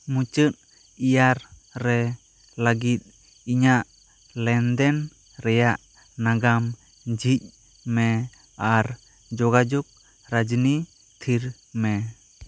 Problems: constant background noise